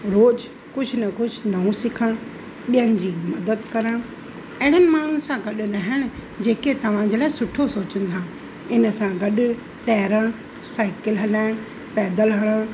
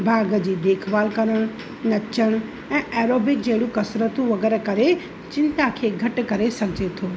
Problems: constant background noise, echo